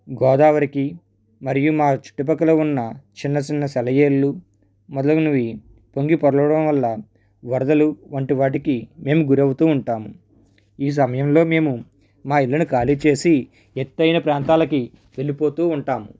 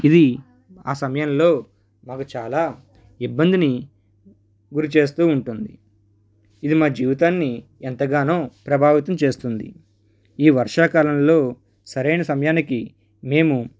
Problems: background sounds at intervals